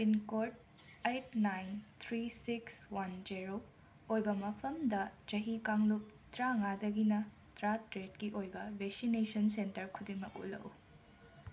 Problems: constant background noise